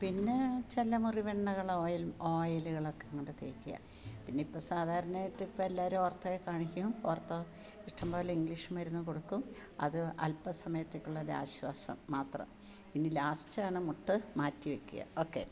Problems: low volume